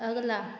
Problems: none marked